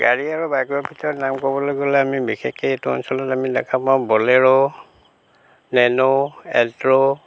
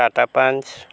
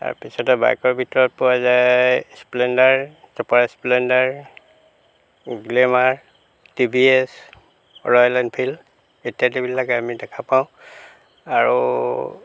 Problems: background sounds at intervals